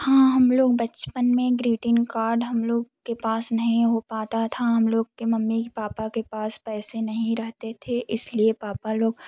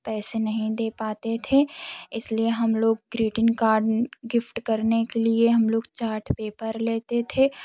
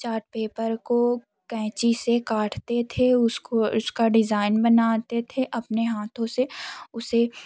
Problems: none marked